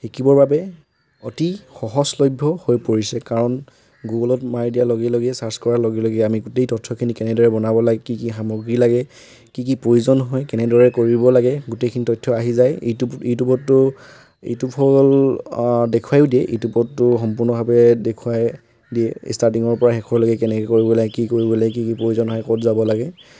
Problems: constant background noise